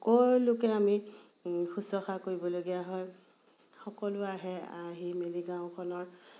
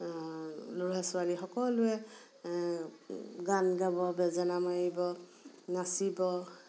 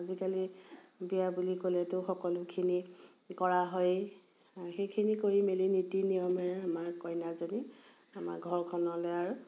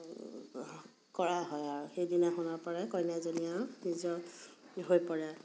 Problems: constant background noise